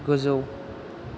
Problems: none marked